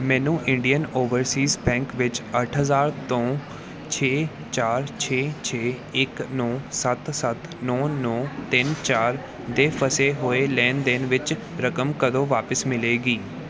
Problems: background sounds at intervals